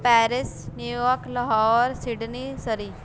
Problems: constant background noise